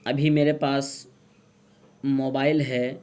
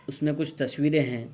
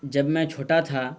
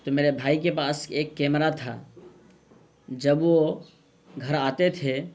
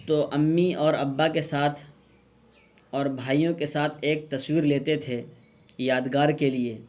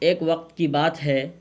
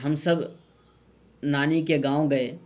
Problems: none marked